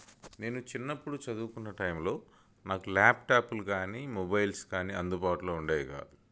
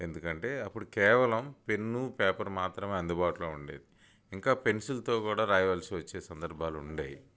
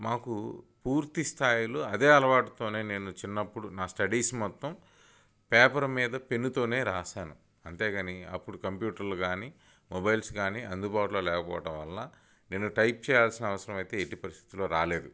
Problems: none marked